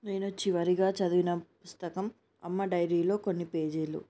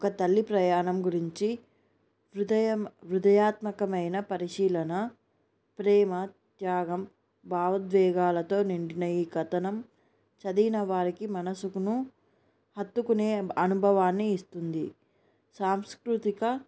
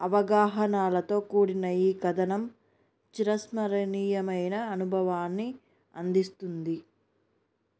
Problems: none marked